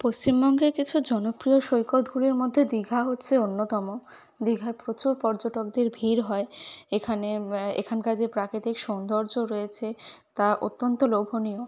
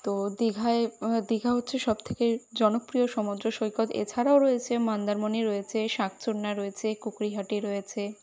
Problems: constant background noise